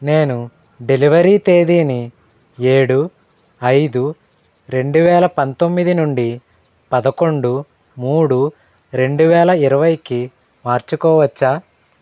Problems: none marked